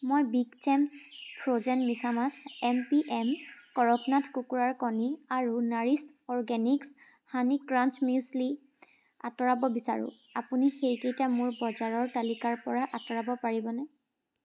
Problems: background sounds at intervals